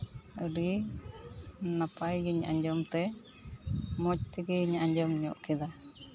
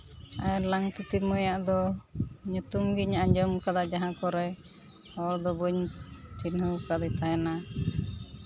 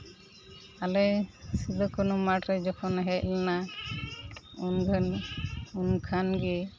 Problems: none marked